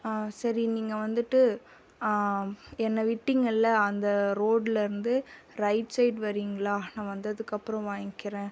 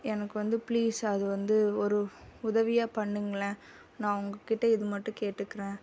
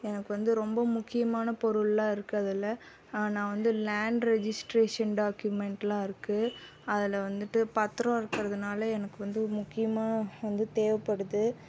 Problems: constant background noise